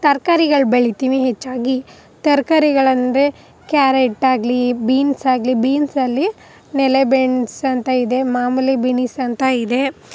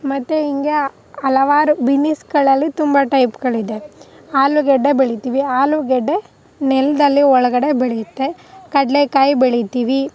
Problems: none marked